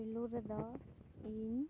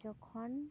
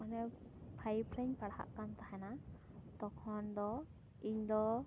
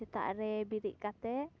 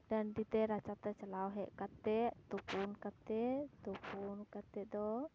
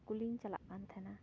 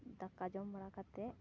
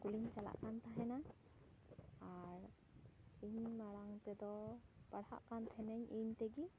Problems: low volume